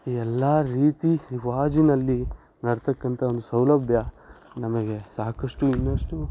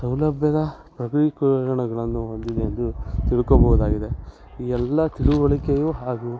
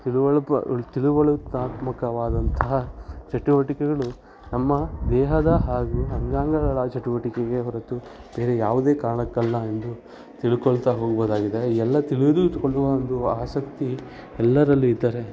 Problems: none marked